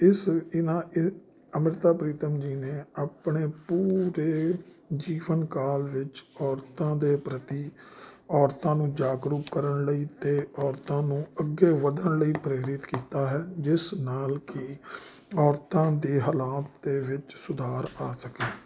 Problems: constant background noise